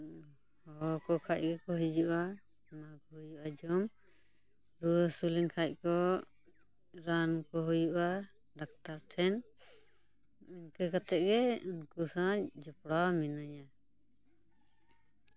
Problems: background sounds at intervals